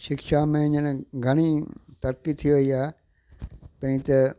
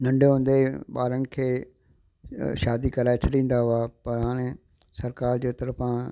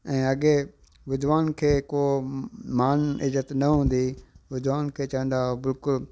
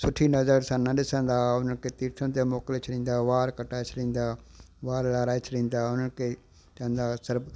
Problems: constant background noise, echo